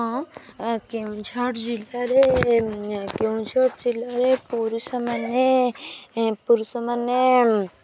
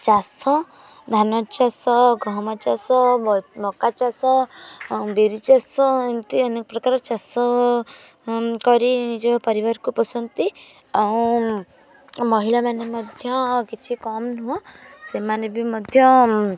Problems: constant background noise, continuous background conversations